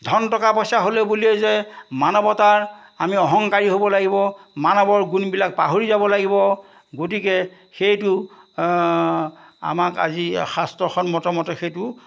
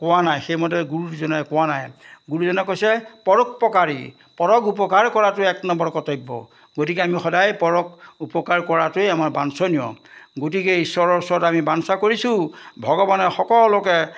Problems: background sounds at intervals